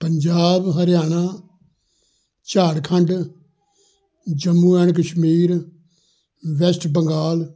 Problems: none marked